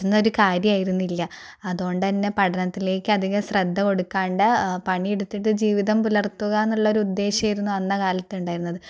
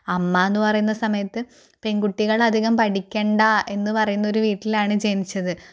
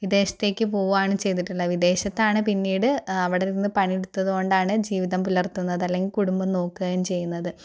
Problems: none marked